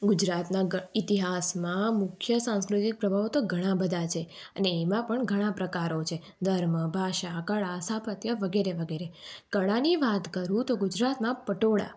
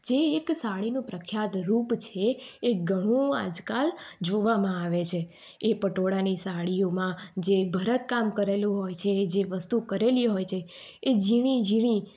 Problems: background sounds at intervals